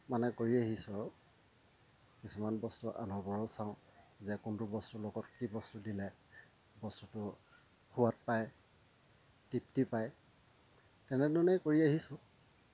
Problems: constant background noise